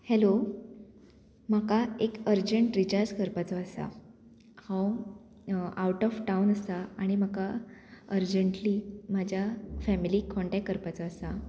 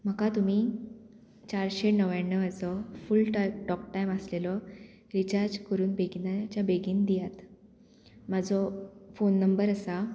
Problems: none marked